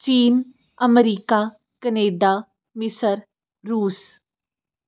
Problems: none marked